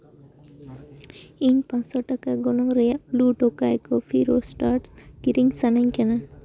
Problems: background sounds at intervals, background conversations at intervals